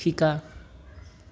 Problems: none marked